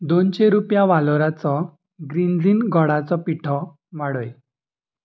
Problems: none marked